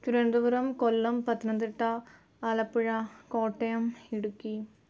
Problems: none marked